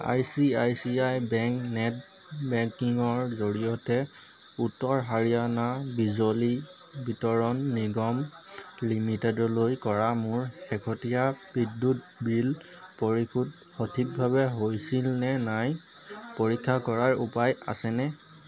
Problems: none marked